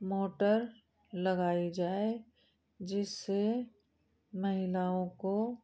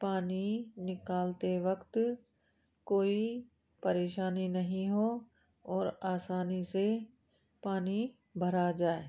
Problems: constant background noise